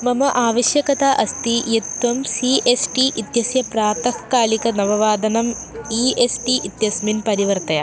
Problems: background sounds at intervals